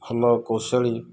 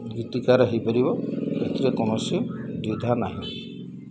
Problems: background sounds at intervals, low volume